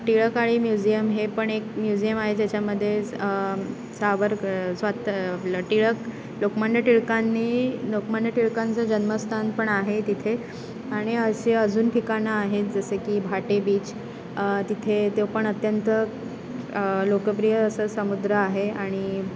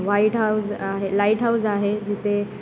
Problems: constant background noise, continuous background conversations